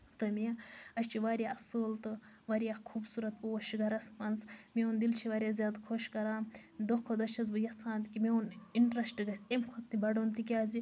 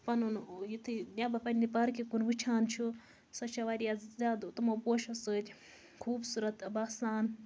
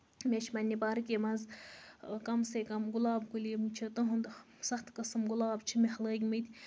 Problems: constant background noise